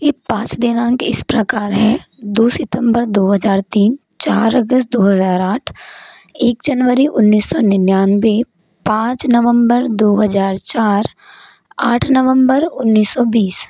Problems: constant background noise